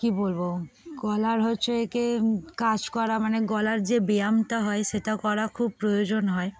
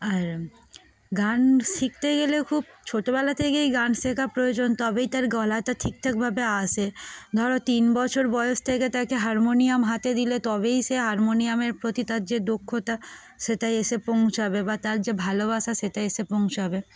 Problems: constant background noise, continuous background conversations